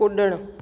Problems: constant background noise, echo